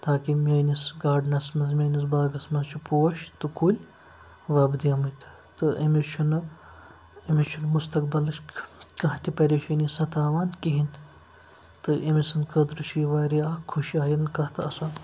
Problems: constant background noise